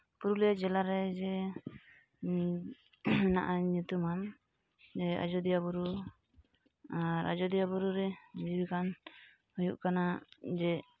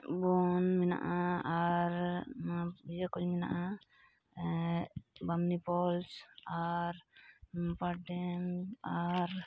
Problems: none marked